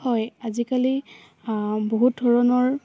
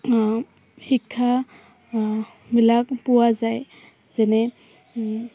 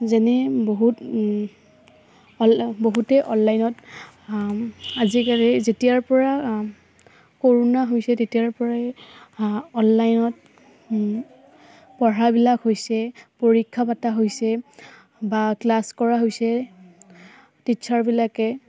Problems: none marked